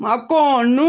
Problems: constant background noise, low volume